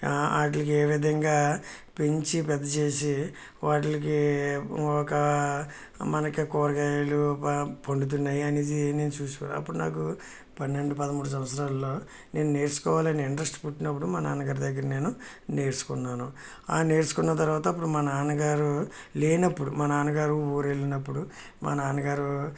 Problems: none marked